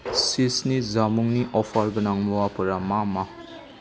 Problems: constant background noise